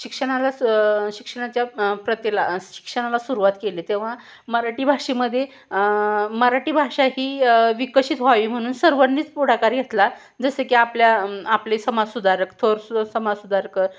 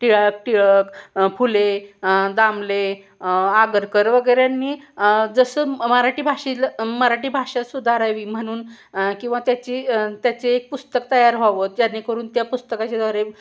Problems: background sounds at intervals